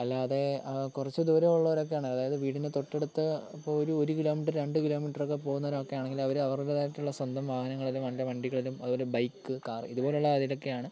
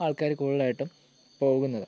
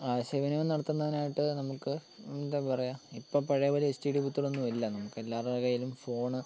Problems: low volume